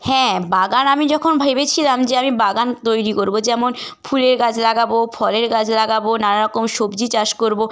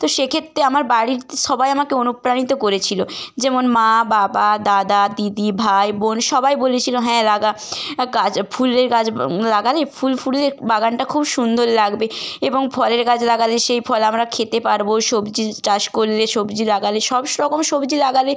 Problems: background sounds at intervals